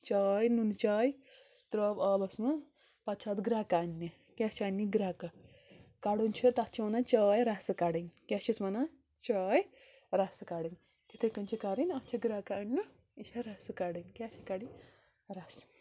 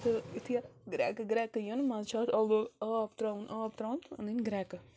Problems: constant background noise